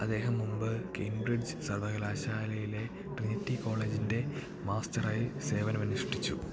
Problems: constant background noise, low volume